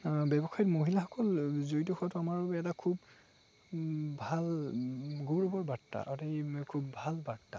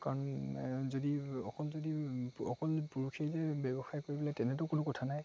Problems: constant background noise, background conversations at intervals